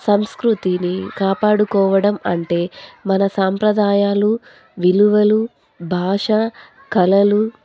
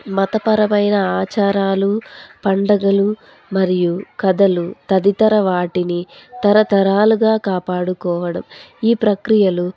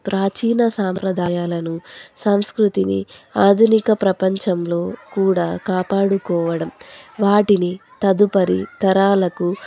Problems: constant background noise